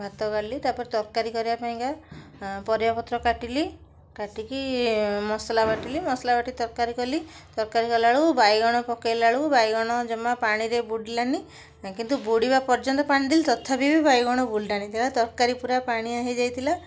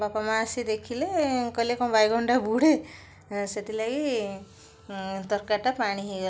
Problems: background sounds at intervals